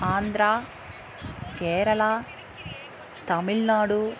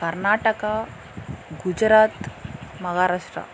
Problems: background sounds at intervals